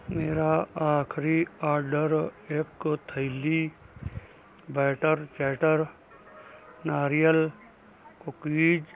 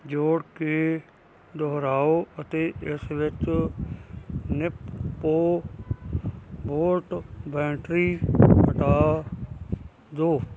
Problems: none marked